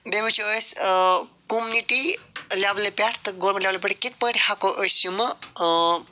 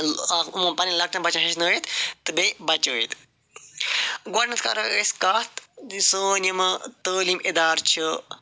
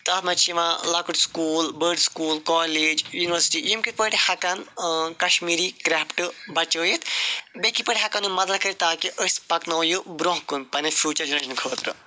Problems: none marked